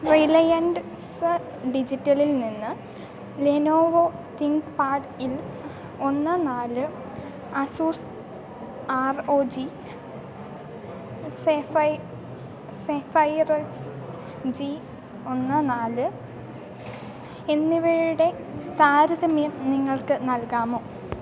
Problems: none marked